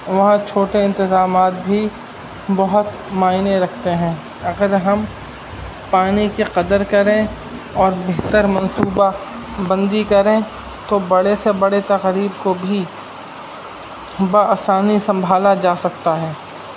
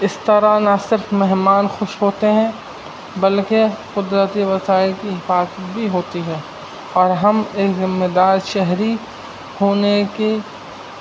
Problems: constant background noise